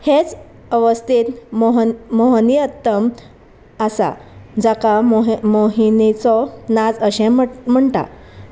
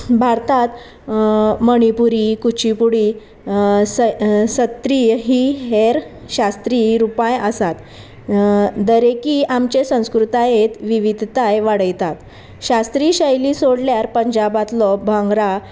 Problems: constant background noise